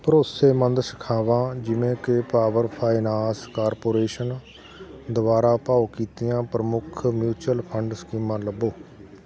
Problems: constant background noise